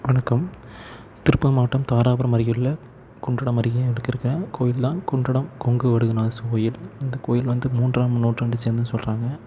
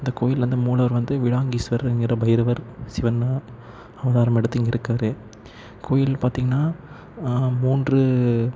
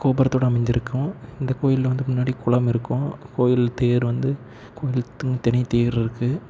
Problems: none marked